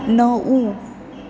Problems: none marked